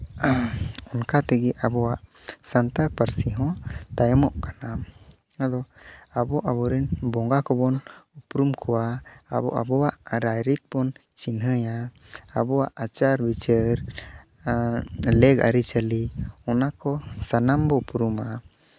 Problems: background sounds at intervals